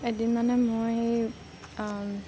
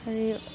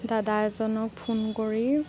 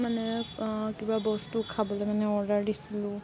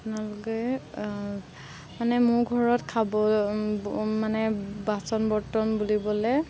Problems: constant background noise